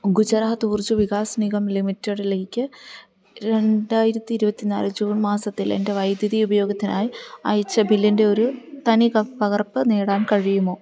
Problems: none marked